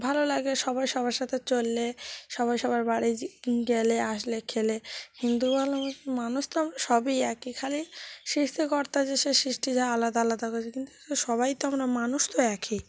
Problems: constant background noise, continuous background conversations